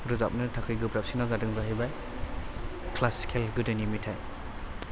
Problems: background sounds at intervals